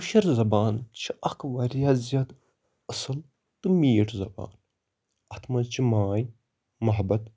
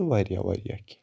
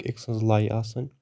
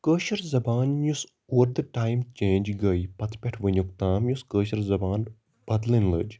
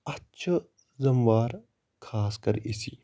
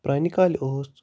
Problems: constant background noise